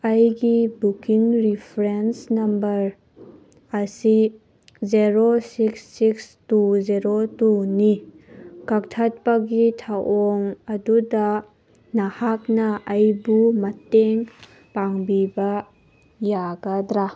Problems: none marked